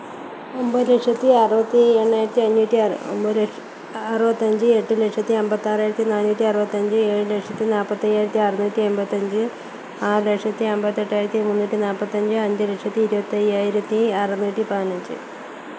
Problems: constant background noise, low volume